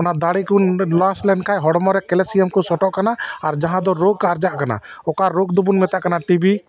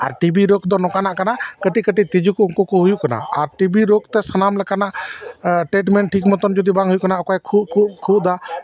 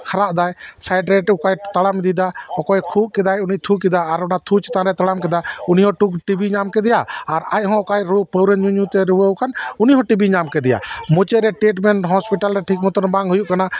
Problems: background sounds at intervals